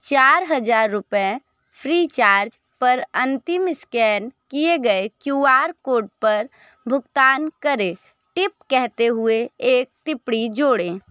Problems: background conversations at intervals